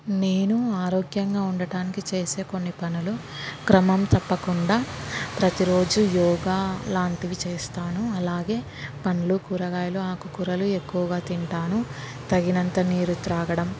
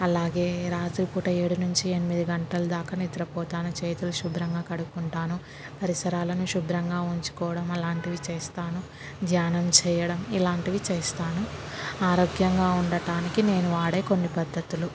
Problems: constant background noise